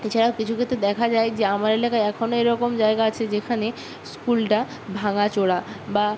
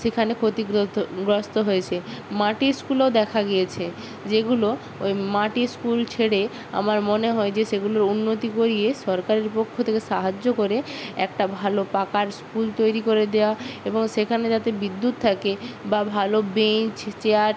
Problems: constant background noise